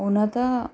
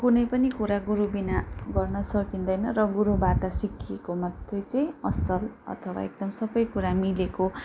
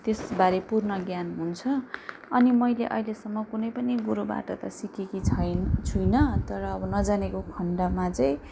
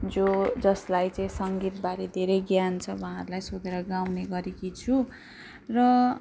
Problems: background sounds at intervals